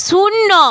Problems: none marked